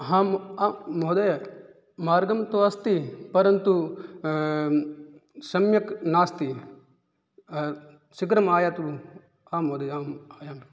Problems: none marked